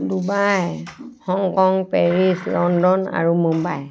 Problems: background sounds at intervals